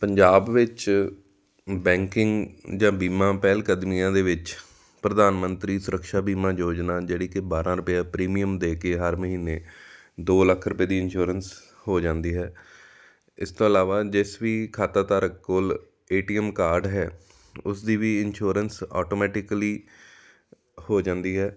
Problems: background sounds at intervals